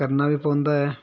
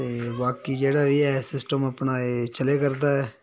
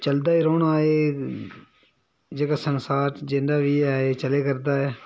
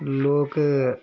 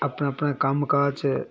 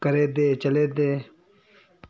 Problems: background sounds at intervals